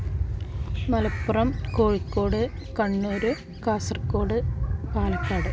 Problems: background sounds at intervals